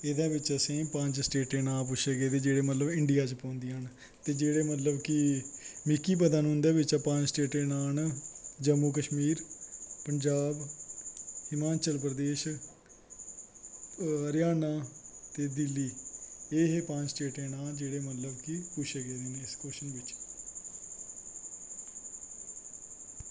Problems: constant background noise